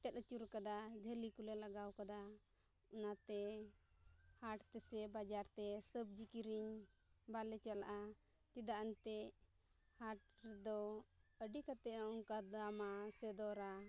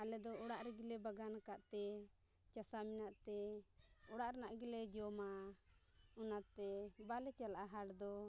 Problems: background sounds at intervals, low volume